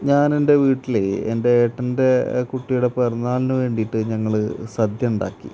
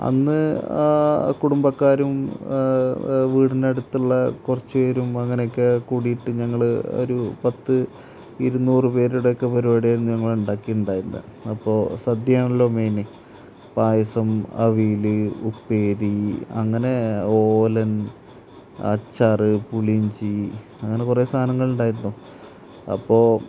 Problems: none marked